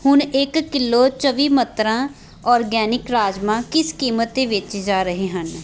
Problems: background sounds at intervals, background conversations at intervals